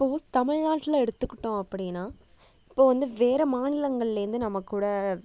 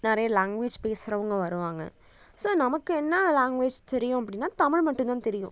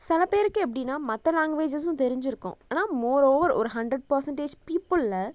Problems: none marked